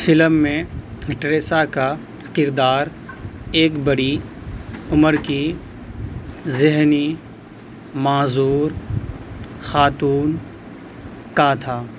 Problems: constant background noise